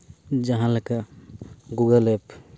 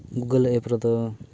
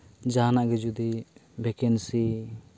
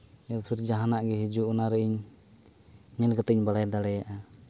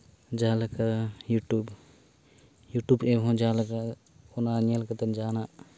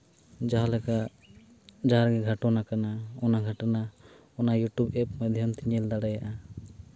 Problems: background sounds at intervals